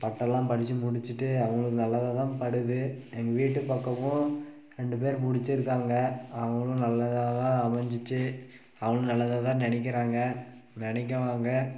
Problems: background sounds at intervals